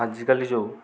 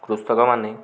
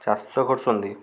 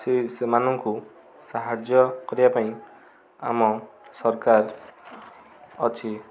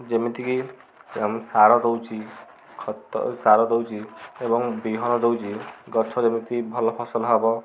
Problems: constant background noise, continuous background conversations